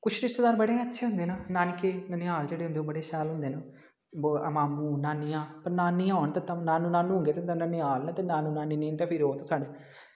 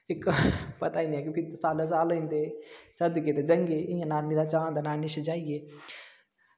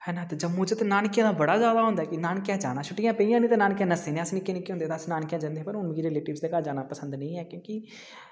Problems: background sounds at intervals, echo